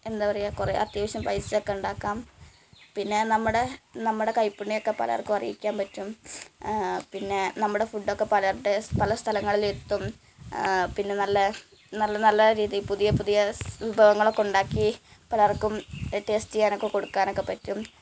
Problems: constant background noise, low volume